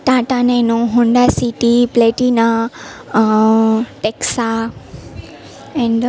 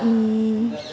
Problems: constant background noise